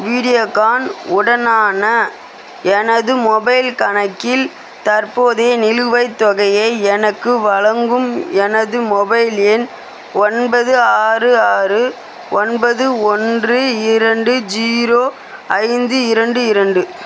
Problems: constant background noise